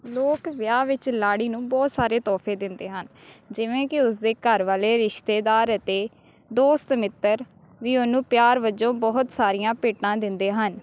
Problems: none marked